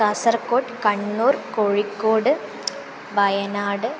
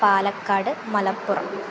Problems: constant background noise